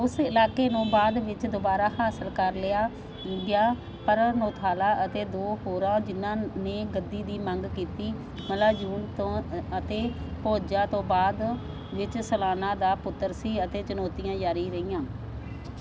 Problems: constant background noise